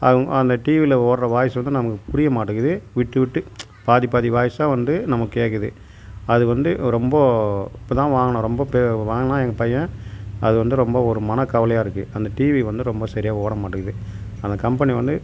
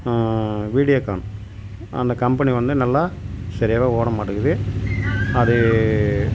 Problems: none marked